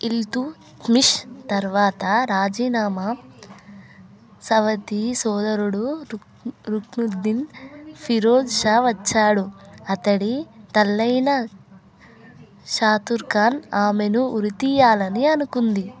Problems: none marked